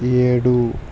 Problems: constant background noise